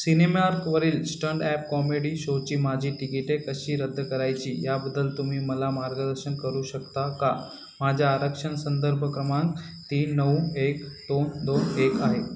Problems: constant background noise